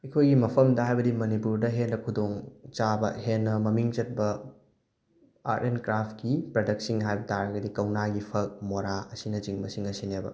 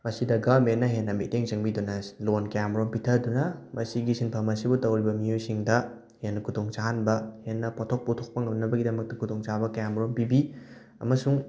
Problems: background sounds at intervals